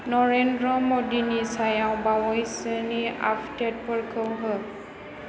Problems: none marked